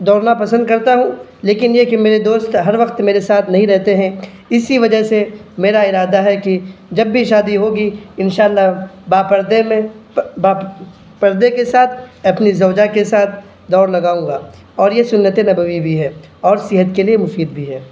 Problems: none marked